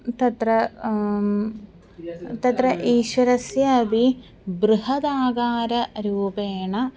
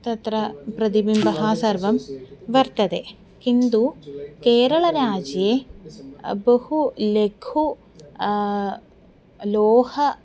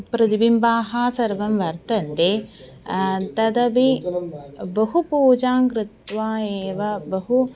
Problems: continuous background conversations